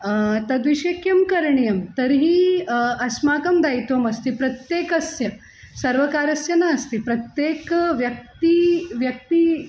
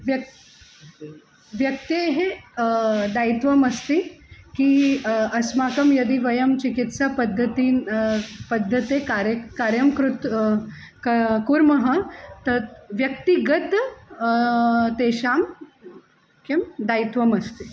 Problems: constant background noise